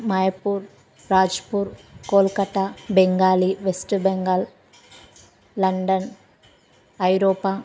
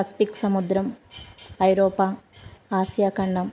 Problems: none marked